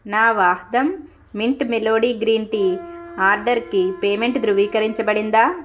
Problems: constant background noise